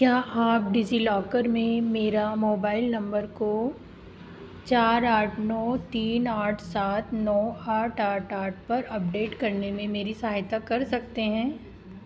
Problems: constant background noise